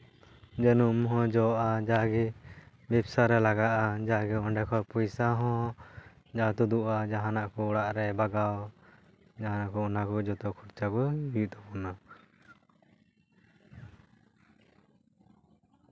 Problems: background sounds at intervals